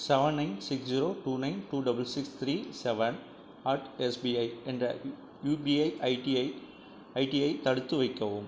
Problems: low volume